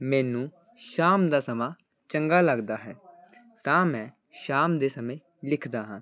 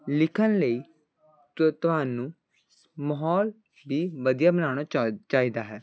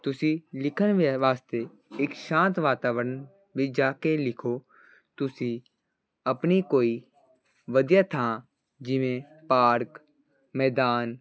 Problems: constant background noise